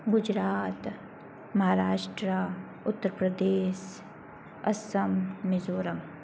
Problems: low volume